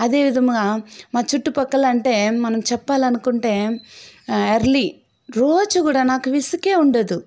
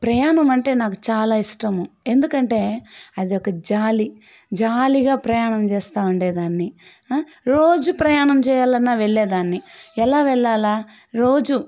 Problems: background sounds at intervals